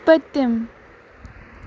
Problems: constant background noise